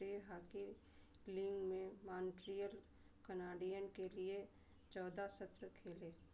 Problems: constant background noise